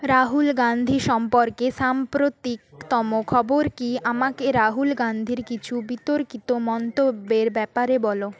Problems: background sounds at intervals, background conversations at intervals